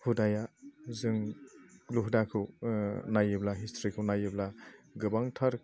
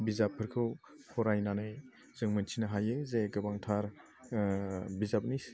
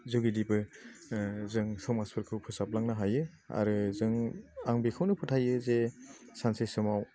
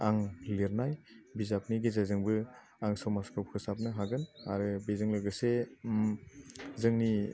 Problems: low volume